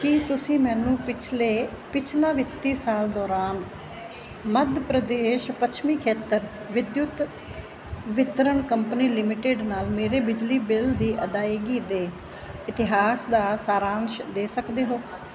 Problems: constant background noise